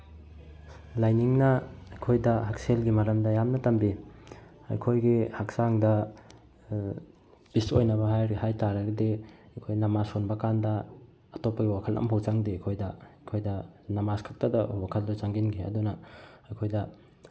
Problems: none marked